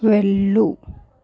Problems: none marked